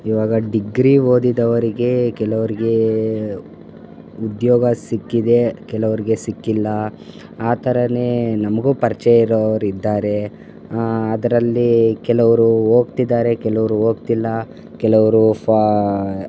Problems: constant background noise